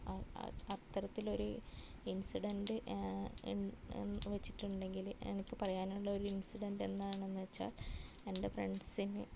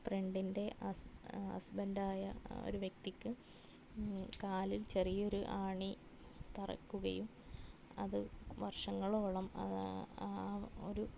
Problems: none marked